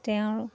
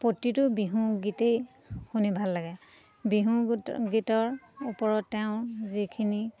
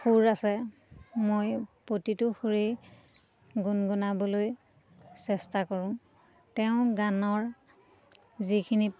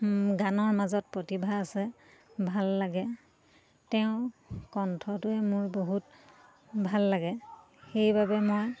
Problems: constant background noise, continuous background conversations